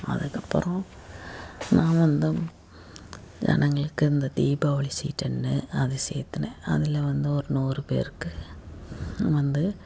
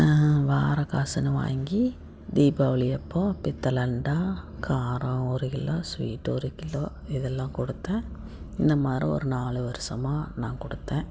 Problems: constant background noise